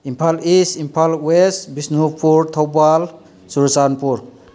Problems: background sounds at intervals